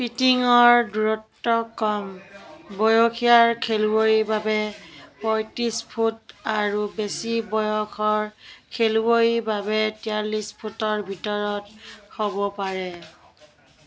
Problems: constant background noise, continuous background conversations